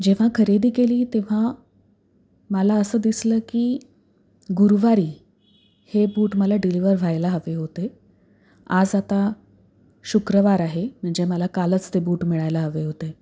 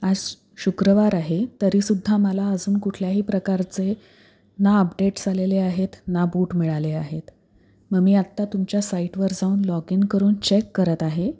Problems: background sounds at intervals